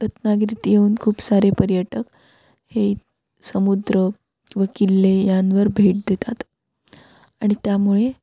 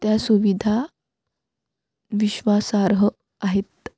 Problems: background sounds at intervals